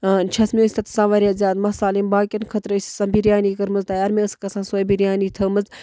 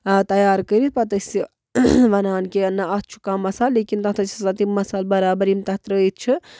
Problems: none marked